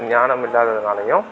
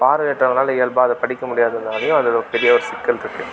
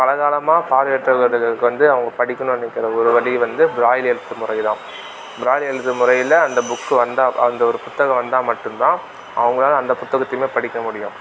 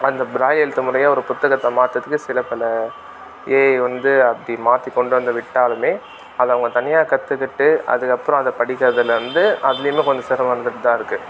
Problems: constant background noise